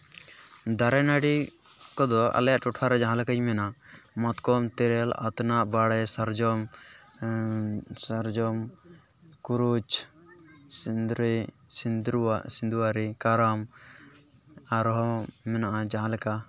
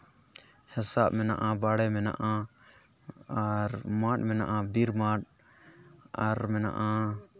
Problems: background conversations at intervals